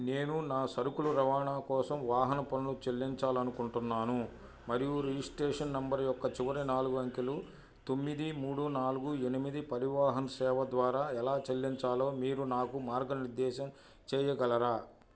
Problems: low volume